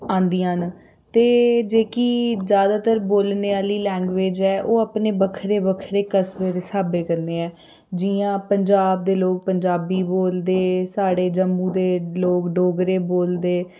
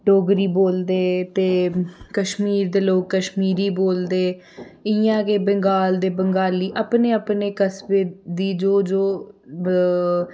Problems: none marked